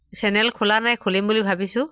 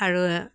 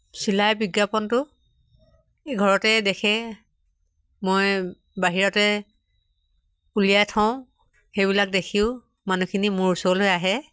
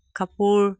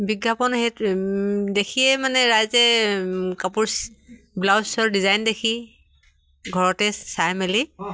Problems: none marked